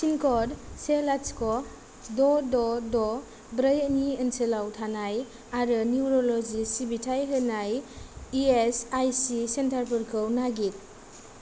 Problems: low volume